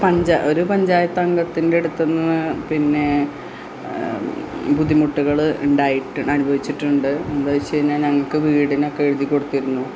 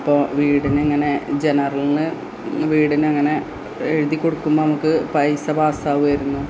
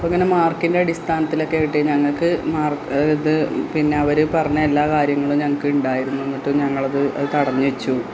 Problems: constant background noise